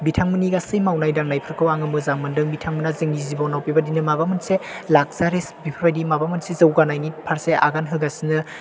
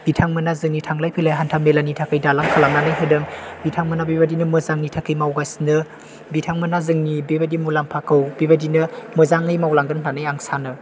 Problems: background sounds at intervals